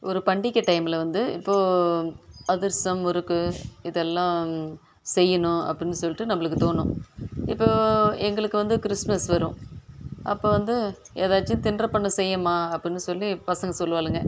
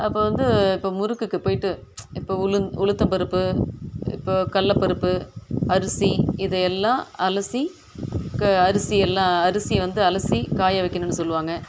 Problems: background sounds at intervals